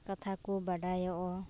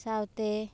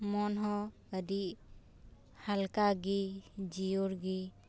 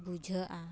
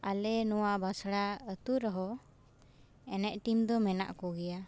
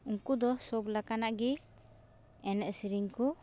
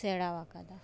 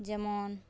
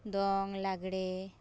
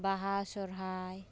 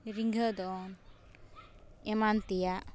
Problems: background sounds at intervals